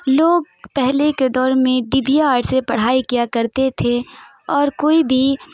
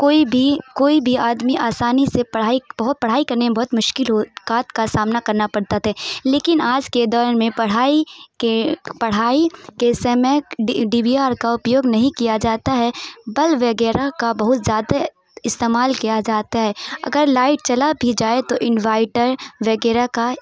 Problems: none marked